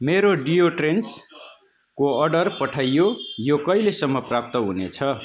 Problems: constant background noise